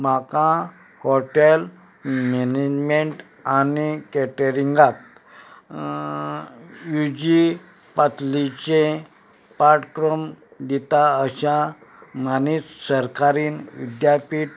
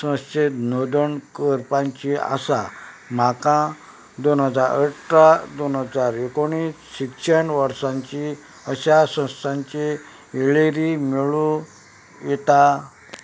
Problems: background sounds at intervals